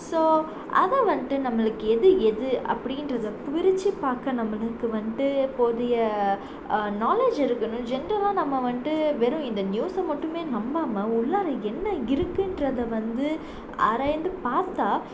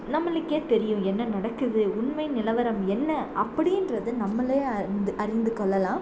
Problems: constant background noise